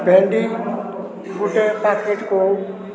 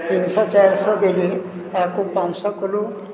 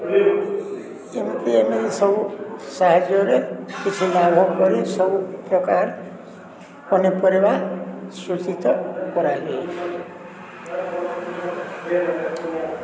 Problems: constant background noise, continuous background conversations